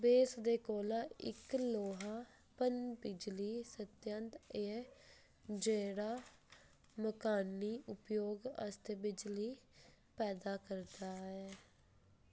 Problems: constant background noise